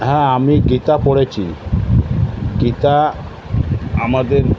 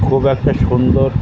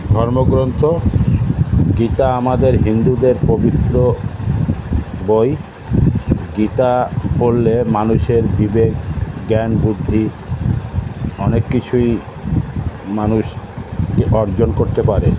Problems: constant background noise